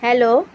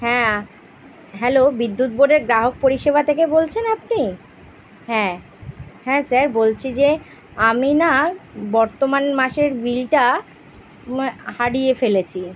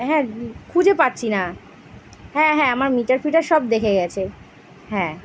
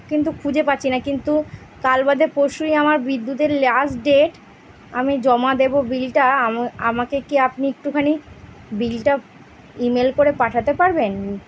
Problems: background sounds at intervals